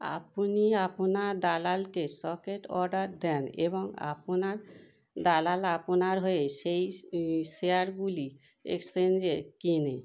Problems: none marked